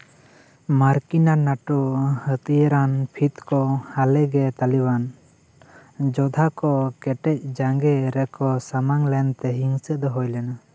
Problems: background sounds at intervals